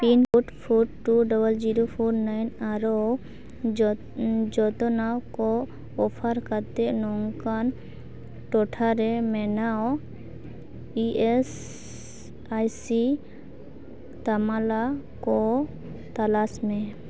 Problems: background sounds at intervals, background conversations at intervals